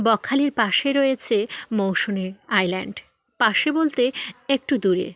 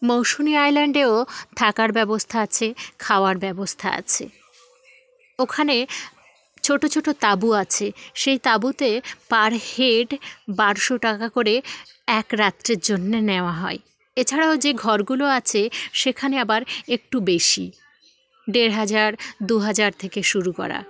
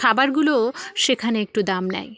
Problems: none marked